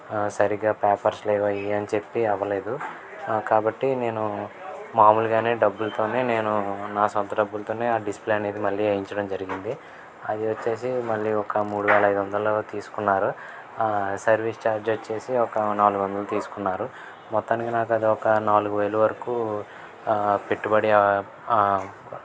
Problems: background sounds at intervals, background conversations at intervals